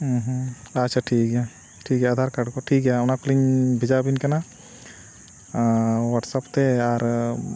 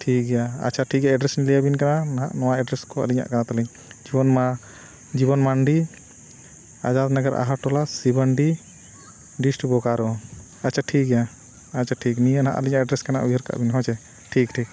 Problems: background sounds at intervals